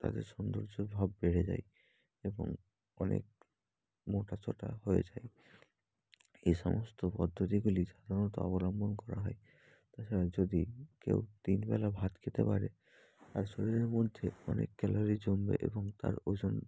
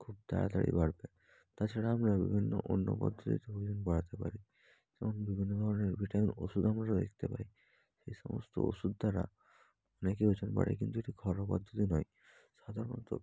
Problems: background sounds at intervals, low volume